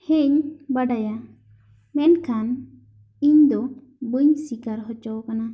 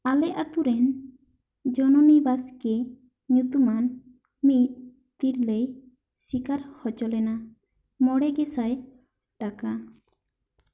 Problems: none marked